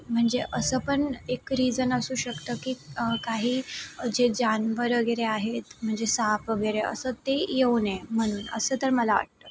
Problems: none marked